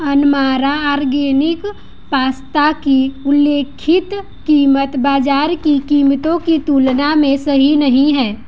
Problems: background sounds at intervals